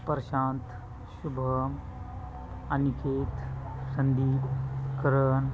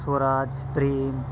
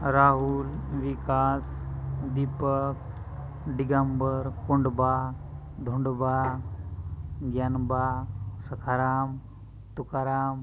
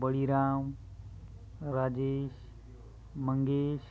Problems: constant background noise, continuous background conversations